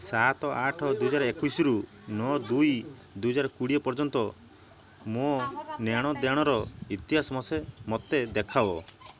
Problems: constant background noise